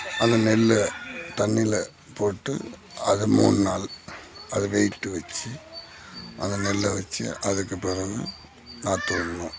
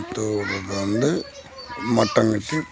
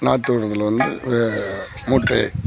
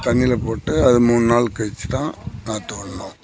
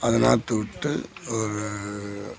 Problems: none marked